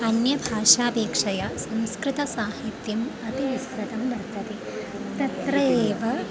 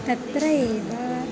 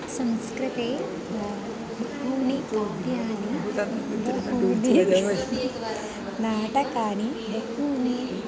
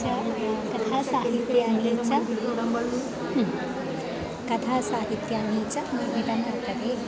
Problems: none marked